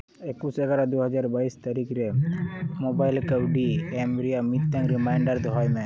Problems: continuous background conversations